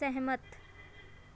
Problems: background sounds at intervals